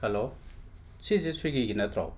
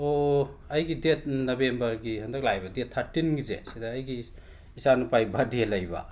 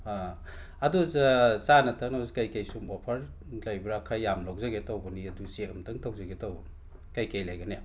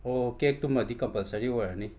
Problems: background sounds at intervals